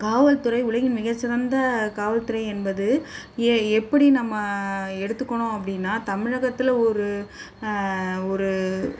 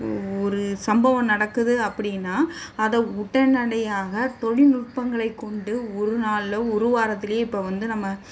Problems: none marked